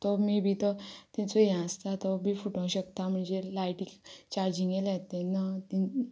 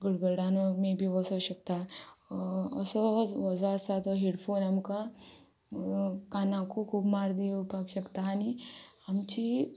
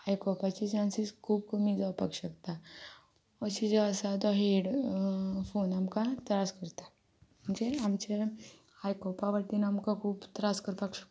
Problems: background sounds at intervals